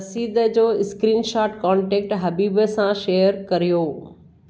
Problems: none marked